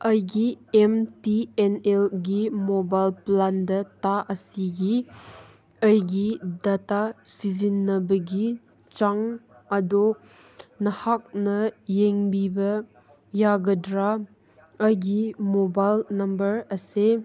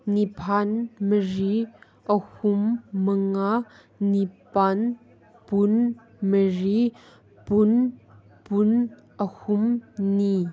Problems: background conversations at intervals